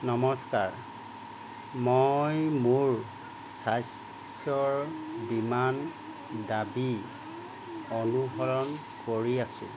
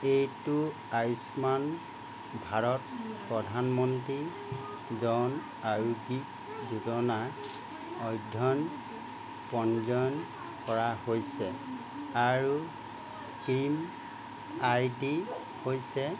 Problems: none marked